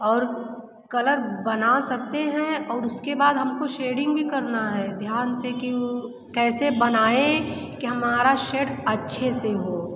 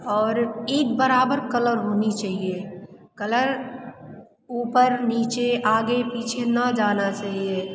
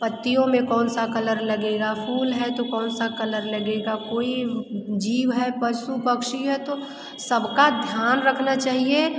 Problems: constant background noise